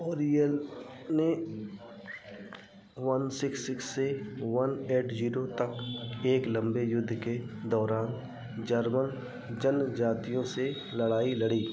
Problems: background sounds at intervals